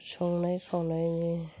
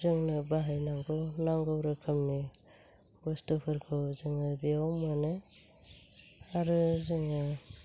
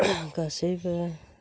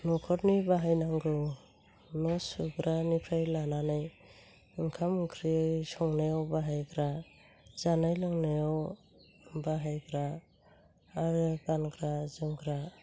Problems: low volume